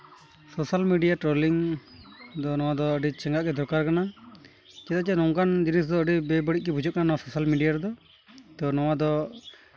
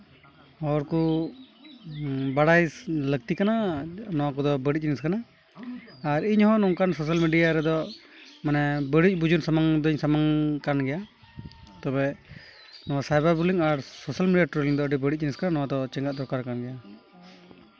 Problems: constant background noise, background conversations at intervals